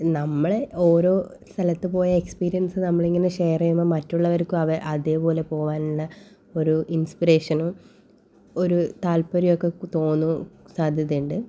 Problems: none marked